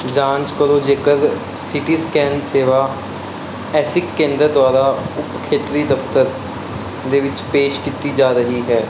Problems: constant background noise